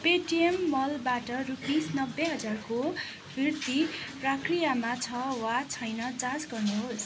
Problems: continuous background conversations